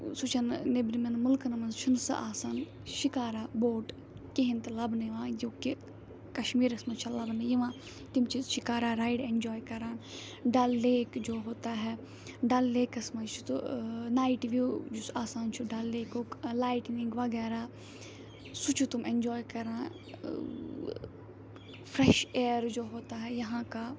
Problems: background sounds at intervals